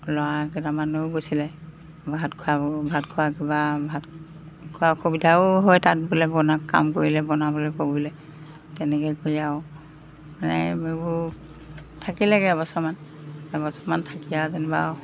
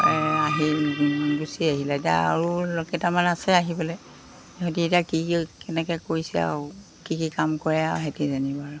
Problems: none marked